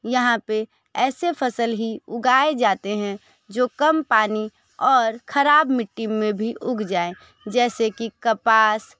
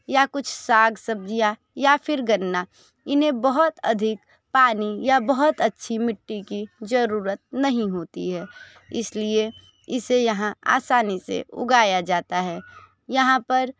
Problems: none marked